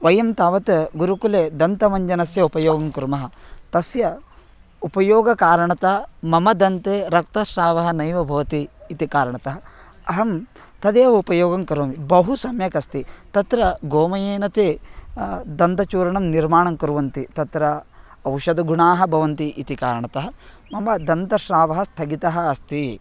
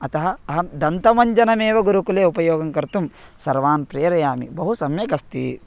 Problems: none marked